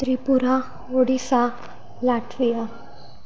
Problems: constant background noise, background conversations at intervals